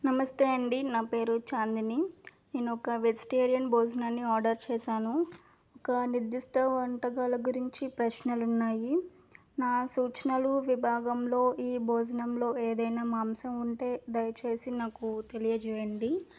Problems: none marked